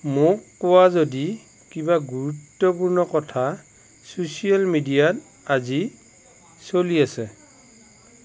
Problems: constant background noise